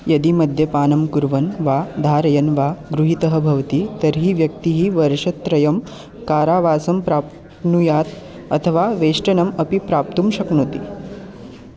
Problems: constant background noise, continuous background conversations